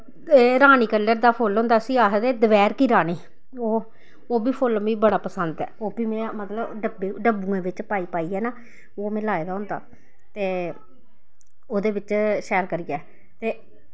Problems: none marked